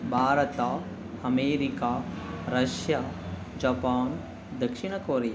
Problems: background sounds at intervals